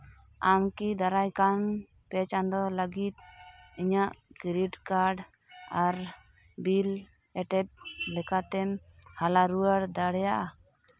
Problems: none marked